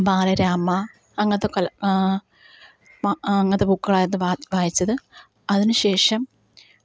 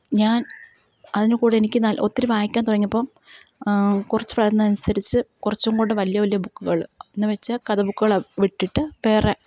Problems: none marked